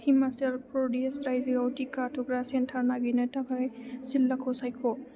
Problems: none marked